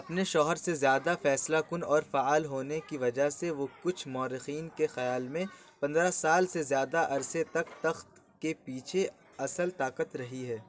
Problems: none marked